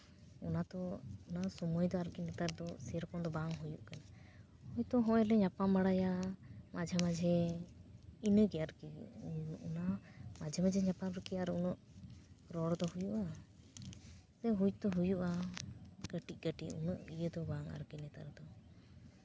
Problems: background sounds at intervals, low volume